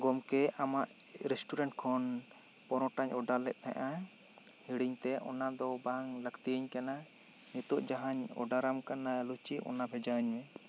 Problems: constant background noise